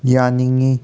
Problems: none marked